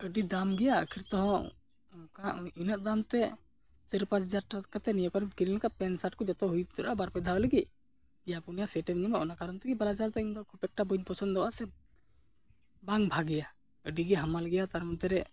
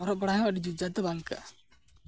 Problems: background sounds at intervals